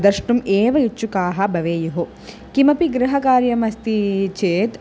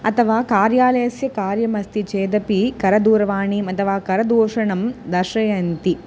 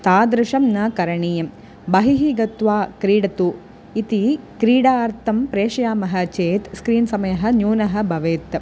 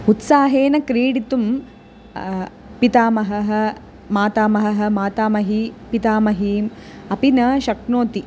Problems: constant background noise